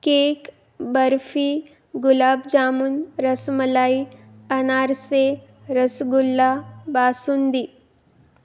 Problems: none marked